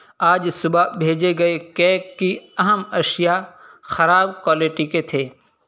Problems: constant background noise